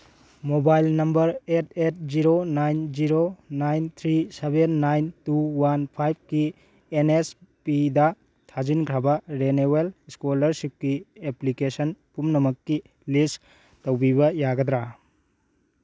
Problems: none marked